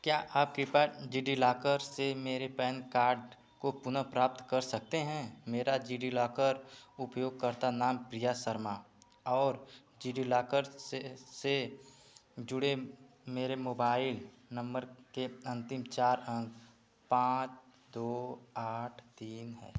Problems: background sounds at intervals